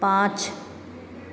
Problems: constant background noise